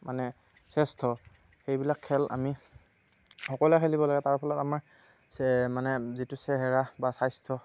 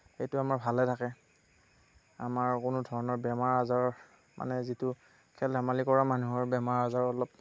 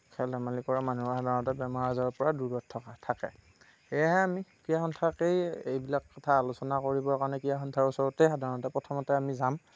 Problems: none marked